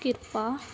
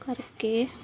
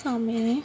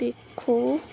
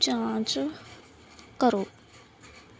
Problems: constant background noise